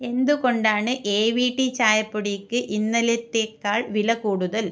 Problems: none marked